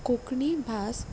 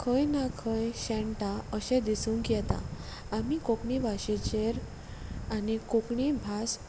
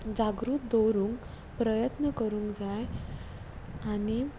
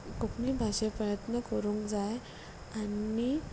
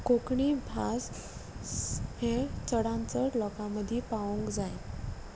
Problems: constant background noise